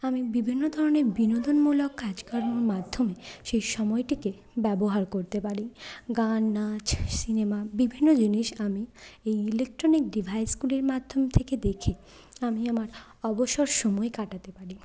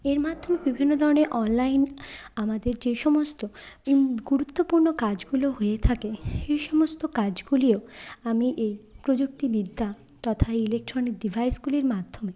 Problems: none marked